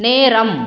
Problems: constant background noise